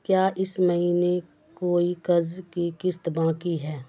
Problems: constant background noise